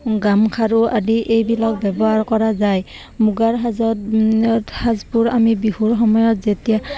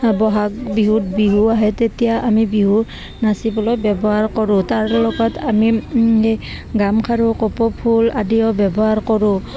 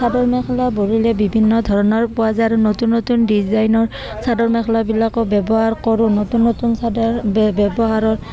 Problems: constant background noise, continuous background conversations